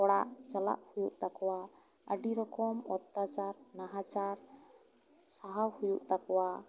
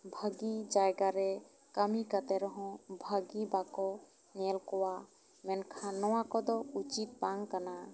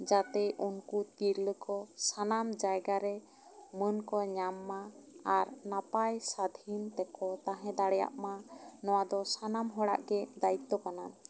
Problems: background sounds at intervals